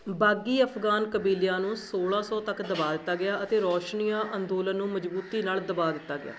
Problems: none marked